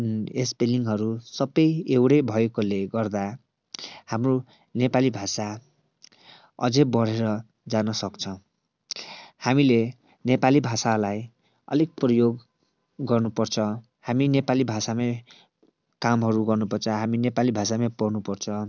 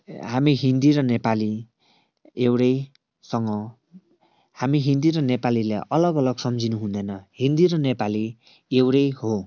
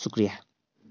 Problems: none marked